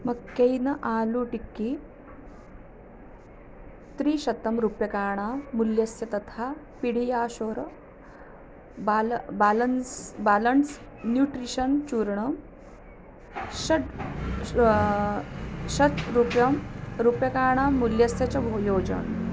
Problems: constant background noise